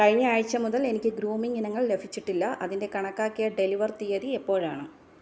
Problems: low volume